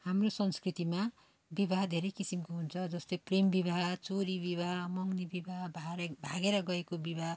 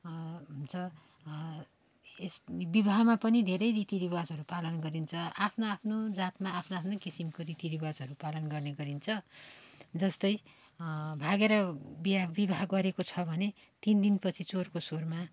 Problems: constant background noise